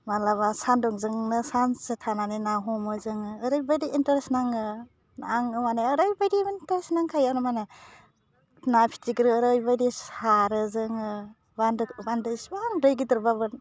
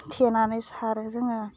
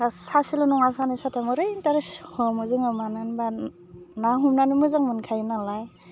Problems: constant background noise